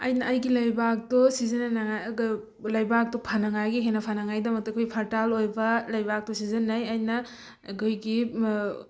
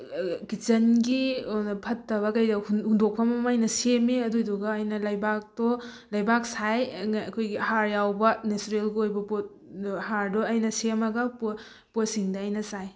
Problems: none marked